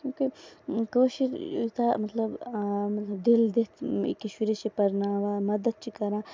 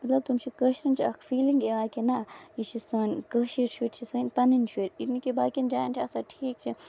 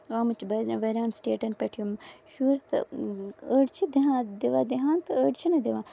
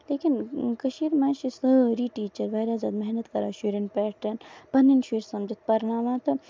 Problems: background sounds at intervals, low volume